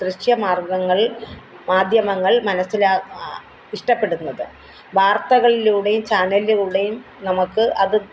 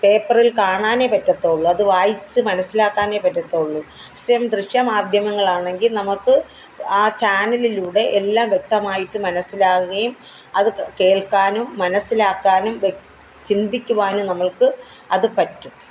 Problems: background sounds at intervals